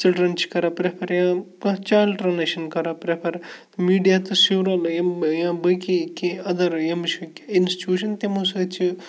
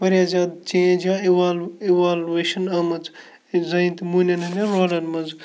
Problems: background sounds at intervals, background conversations at intervals